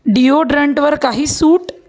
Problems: none marked